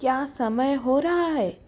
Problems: constant background noise